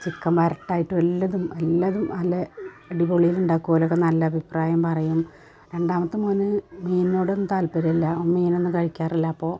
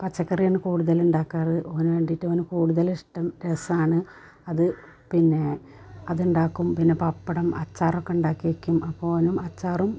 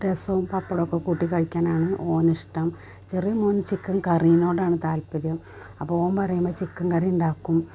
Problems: constant background noise